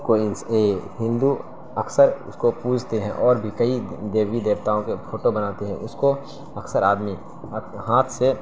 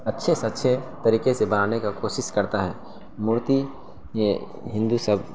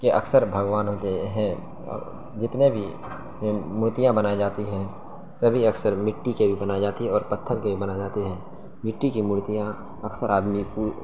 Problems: constant background noise